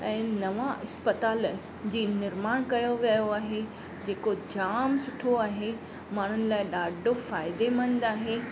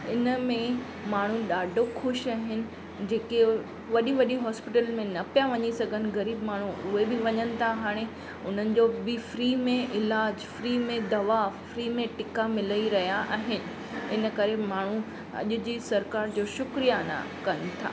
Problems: constant background noise